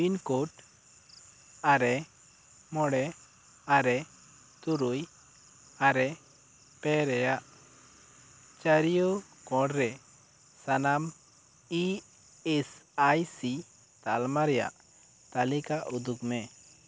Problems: constant background noise